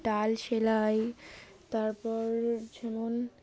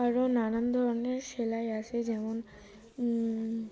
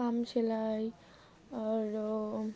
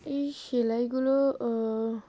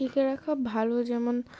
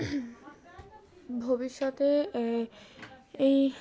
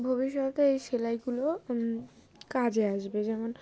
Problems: constant background noise, background conversations at intervals